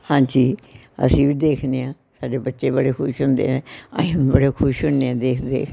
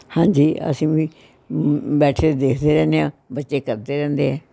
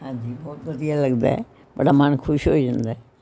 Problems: constant background noise, continuous background conversations